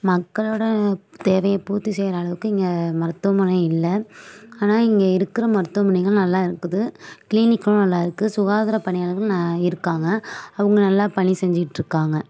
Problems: background sounds at intervals